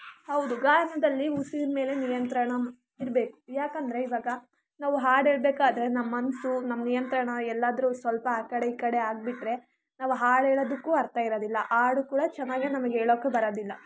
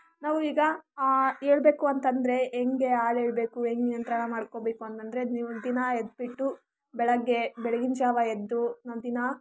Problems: constant background noise